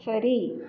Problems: constant background noise